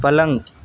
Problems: constant background noise